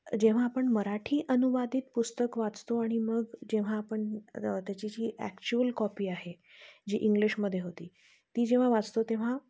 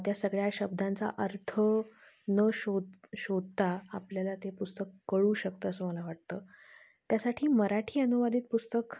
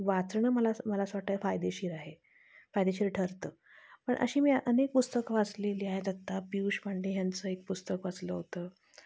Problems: constant background noise, low volume